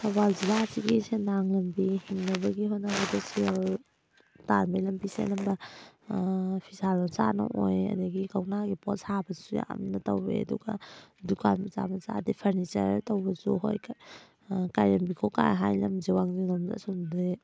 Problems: background sounds at intervals